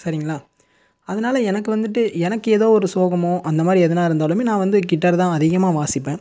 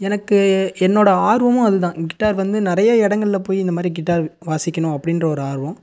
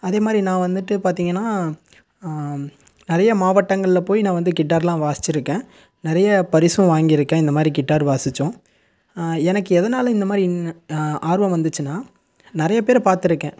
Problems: none marked